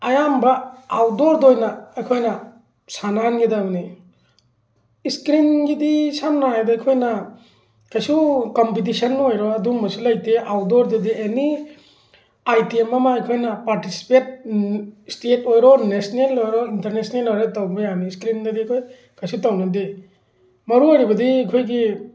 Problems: background sounds at intervals